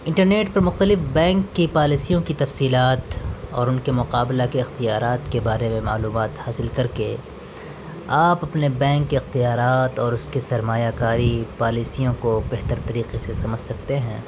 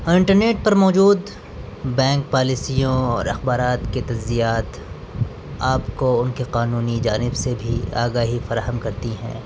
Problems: constant background noise